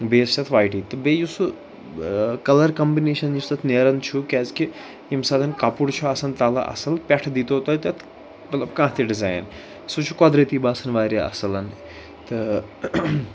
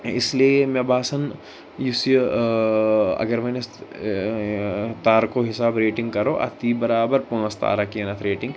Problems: background sounds at intervals, background conversations at intervals